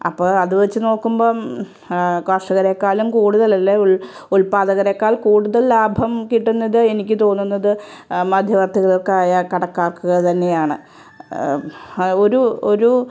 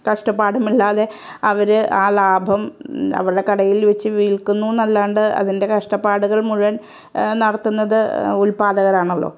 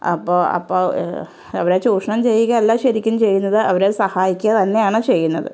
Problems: none marked